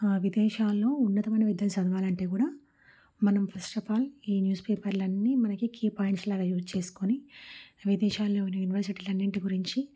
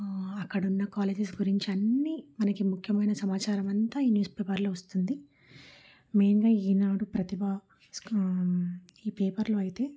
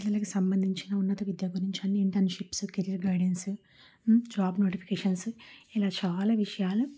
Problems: low volume